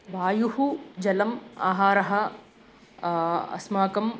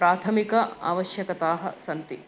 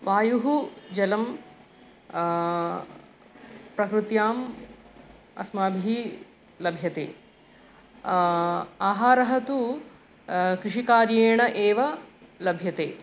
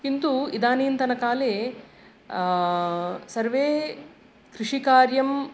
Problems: none marked